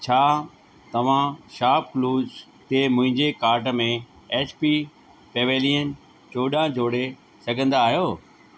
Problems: constant background noise, echo